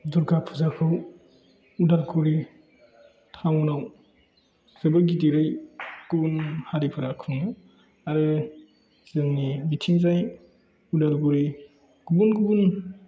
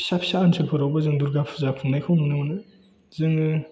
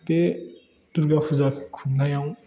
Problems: background conversations at intervals